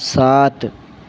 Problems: constant background noise